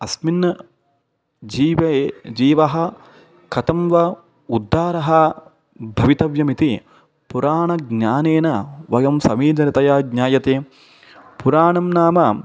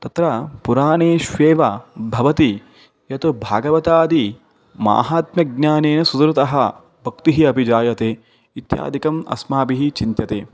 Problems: none marked